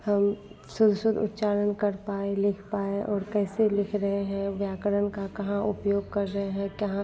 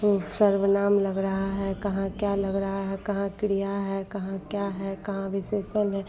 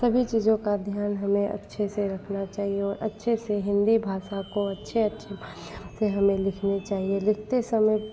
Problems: constant background noise